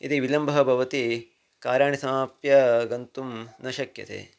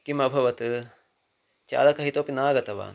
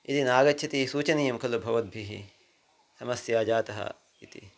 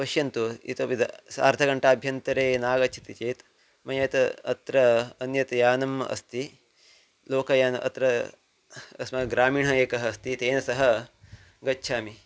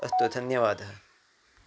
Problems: background sounds at intervals